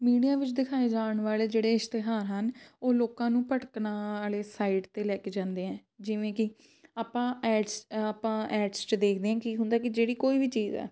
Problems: background sounds at intervals